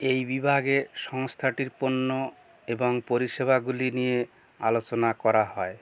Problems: background sounds at intervals